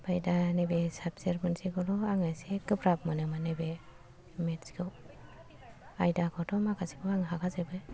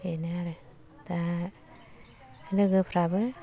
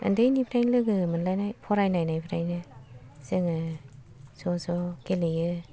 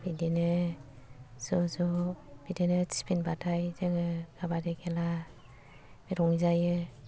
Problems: low volume